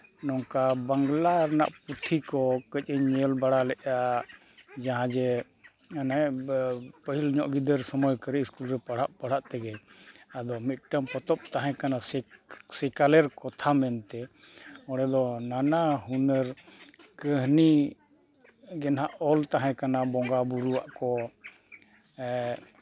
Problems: constant background noise